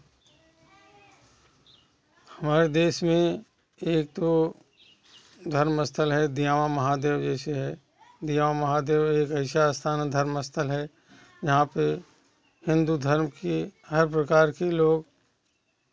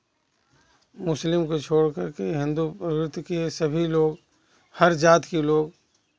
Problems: constant background noise, background conversations at intervals